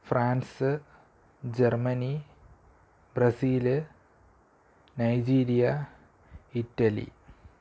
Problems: low volume